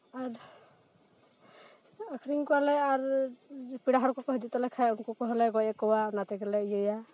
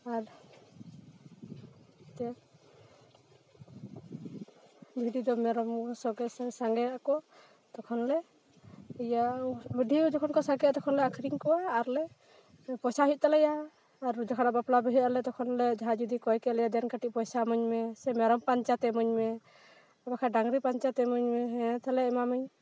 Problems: background sounds at intervals